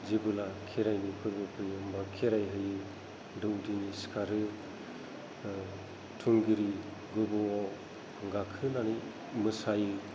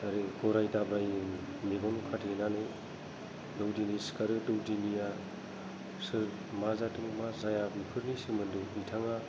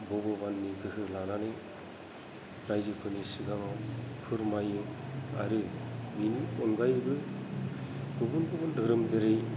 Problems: low volume